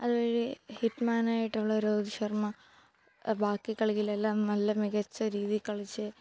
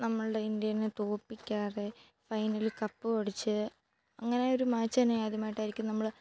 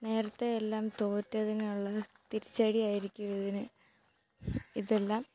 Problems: none marked